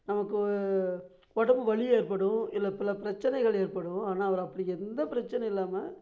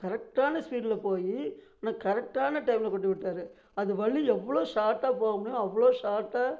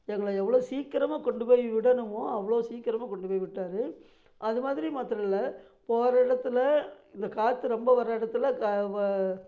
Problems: none marked